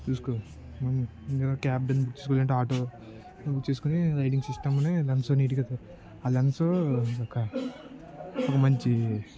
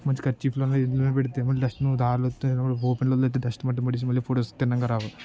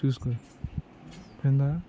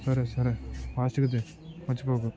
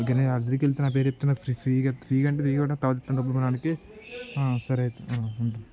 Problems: constant background noise, continuous background conversations